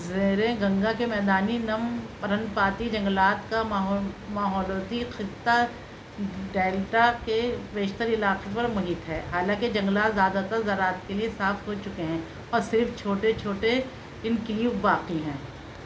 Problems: constant background noise